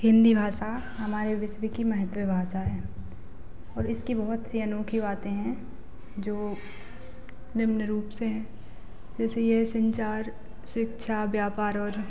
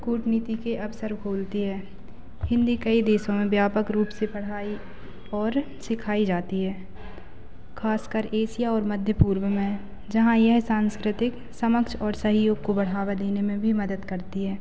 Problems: none marked